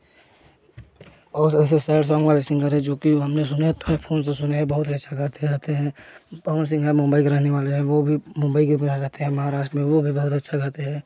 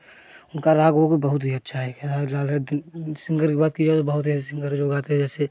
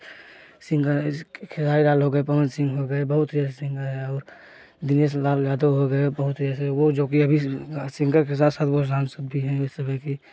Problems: none marked